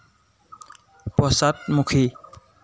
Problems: constant background noise